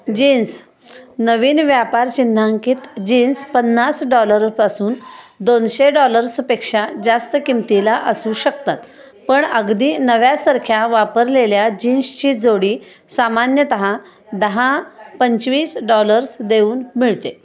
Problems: constant background noise, continuous background conversations